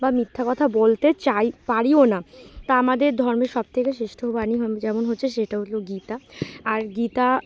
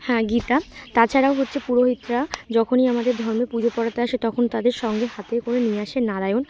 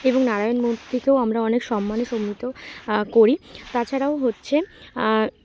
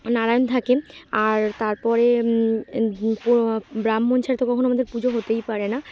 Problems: none marked